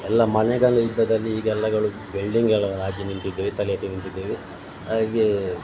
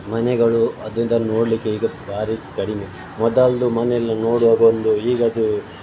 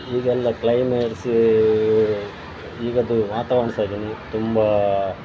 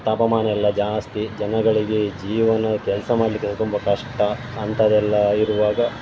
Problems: background sounds at intervals